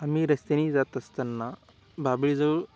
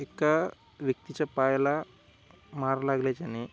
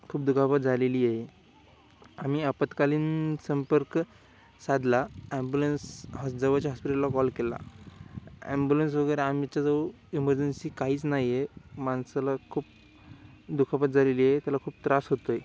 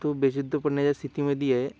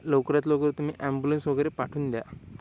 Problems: background sounds at intervals